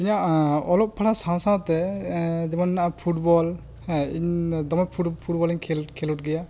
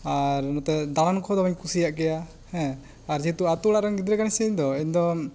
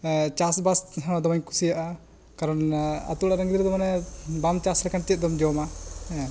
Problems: none marked